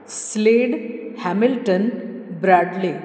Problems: low volume